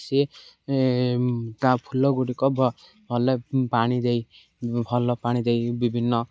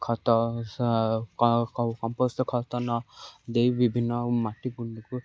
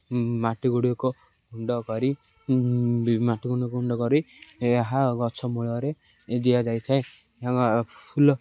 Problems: none marked